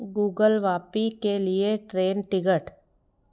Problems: background sounds at intervals